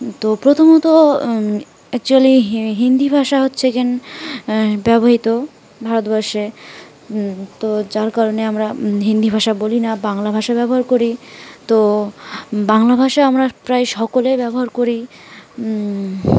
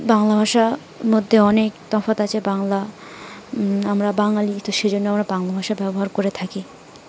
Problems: constant background noise